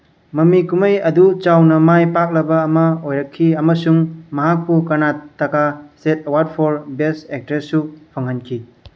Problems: background sounds at intervals